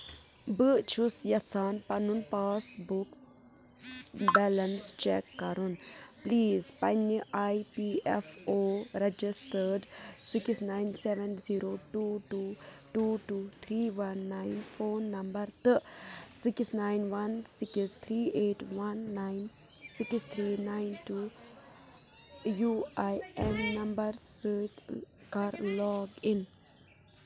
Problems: background sounds at intervals, background conversations at intervals